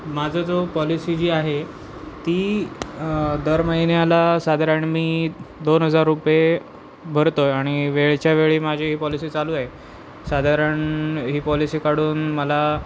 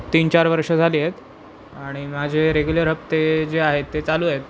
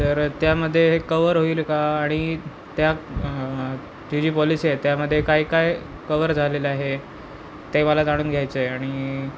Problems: constant background noise, background conversations at intervals